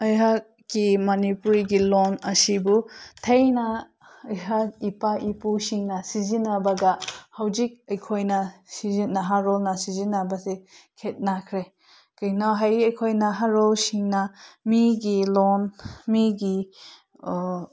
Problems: none marked